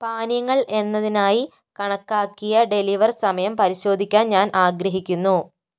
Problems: none marked